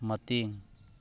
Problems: none marked